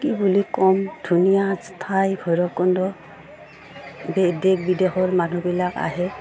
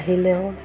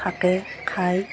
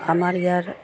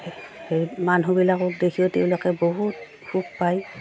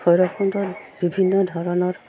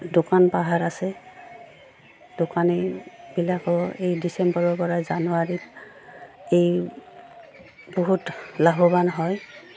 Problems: background sounds at intervals